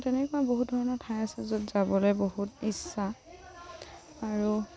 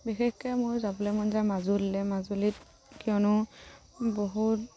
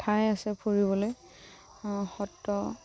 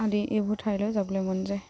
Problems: background sounds at intervals